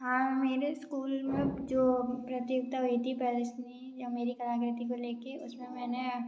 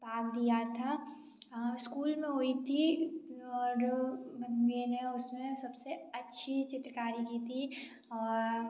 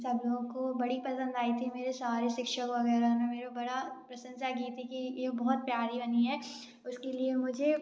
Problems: background sounds at intervals, background conversations at intervals